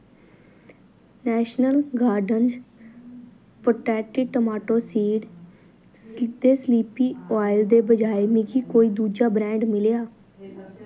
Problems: none marked